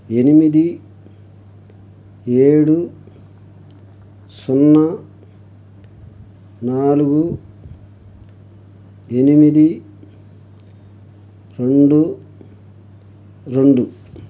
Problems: none marked